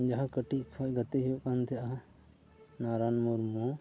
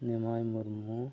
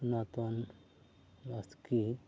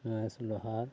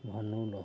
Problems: none marked